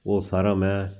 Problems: background sounds at intervals